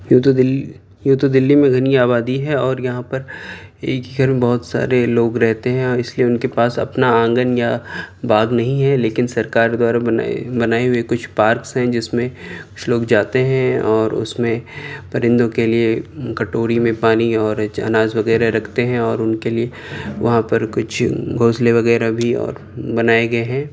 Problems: none marked